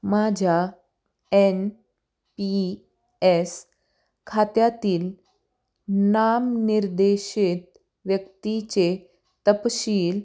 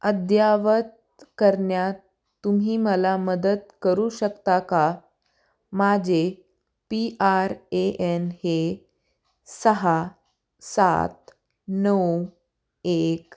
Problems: none marked